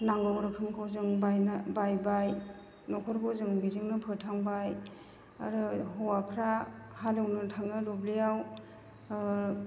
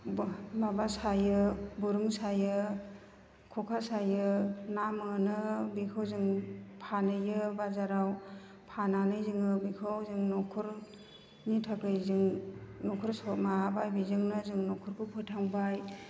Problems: none marked